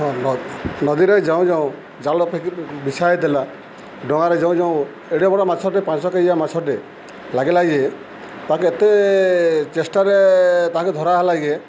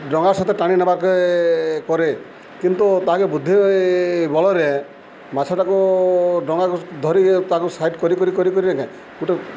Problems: constant background noise